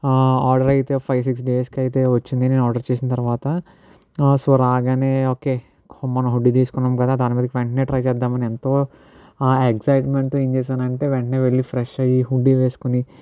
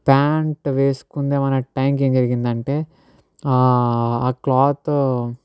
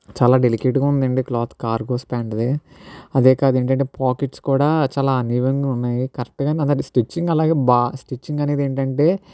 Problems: none marked